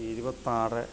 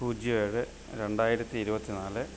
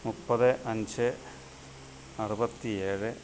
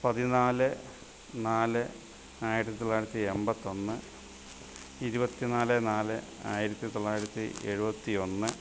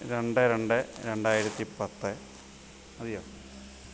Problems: constant background noise, background conversations at intervals